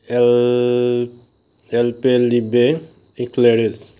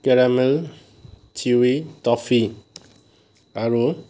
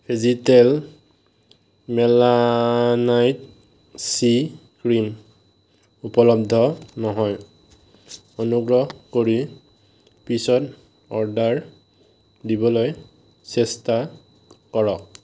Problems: background sounds at intervals